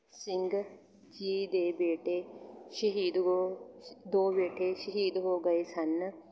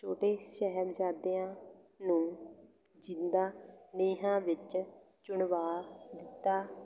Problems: constant background noise